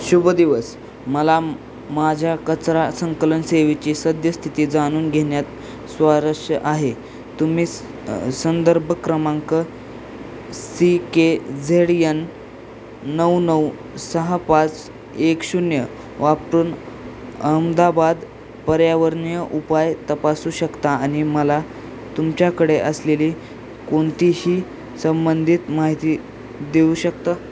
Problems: constant background noise